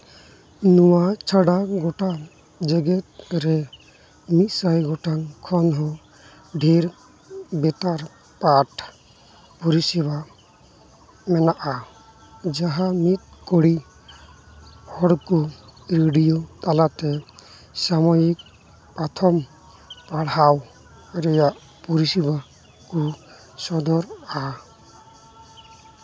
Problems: constant background noise, background conversations at intervals